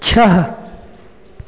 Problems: constant background noise, echo